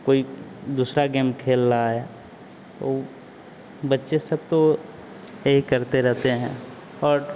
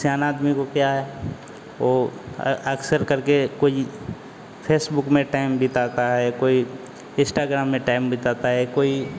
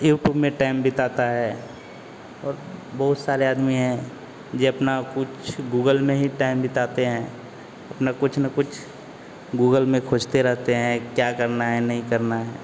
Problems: constant background noise